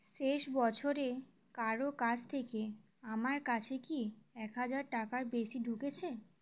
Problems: none marked